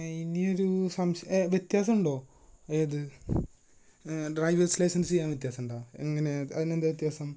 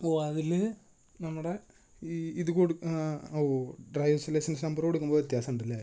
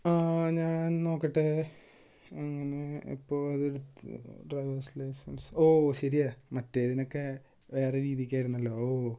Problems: low volume